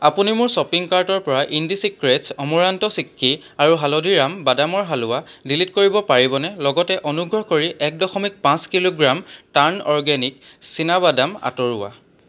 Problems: low volume